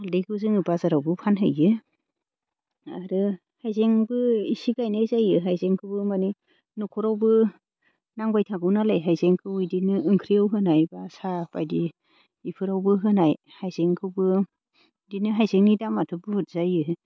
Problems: none marked